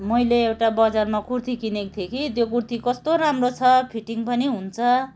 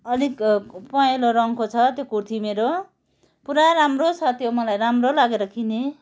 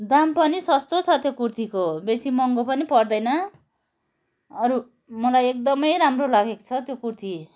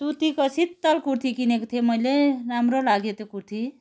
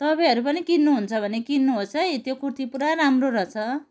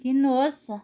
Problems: background conversations at intervals